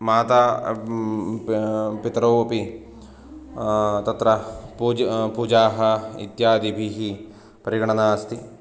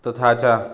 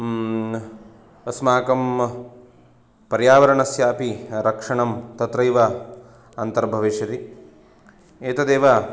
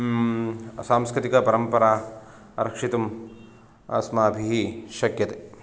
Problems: none marked